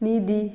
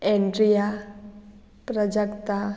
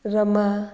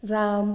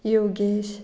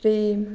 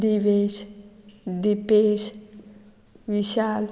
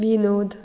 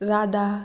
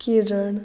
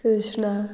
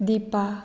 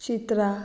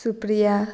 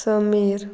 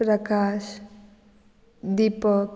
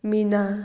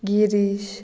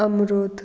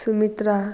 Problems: background sounds at intervals